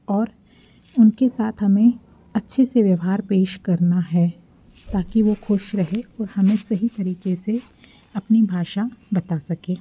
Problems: background sounds at intervals